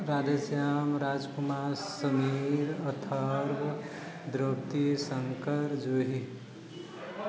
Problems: low volume